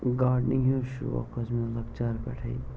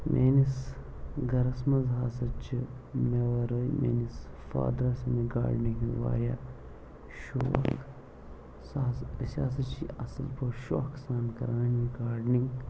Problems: constant background noise, low volume